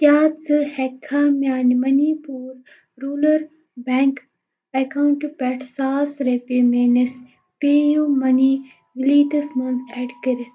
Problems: none marked